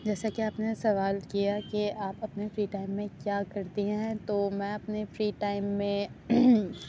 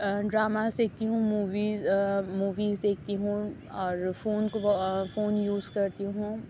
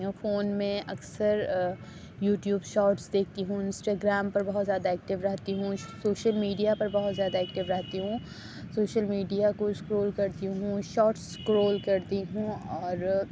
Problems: none marked